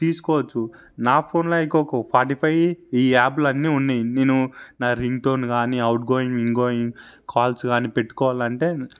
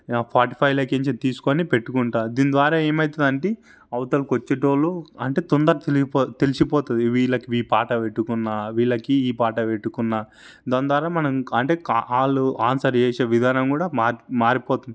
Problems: none marked